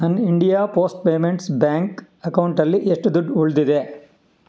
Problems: none marked